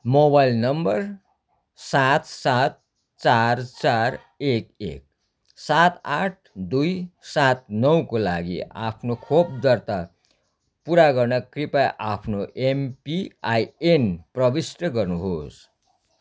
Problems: background sounds at intervals